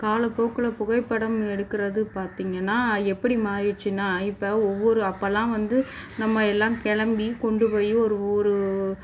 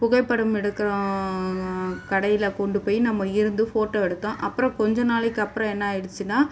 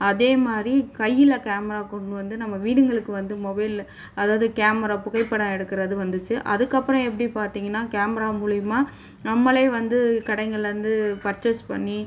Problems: background sounds at intervals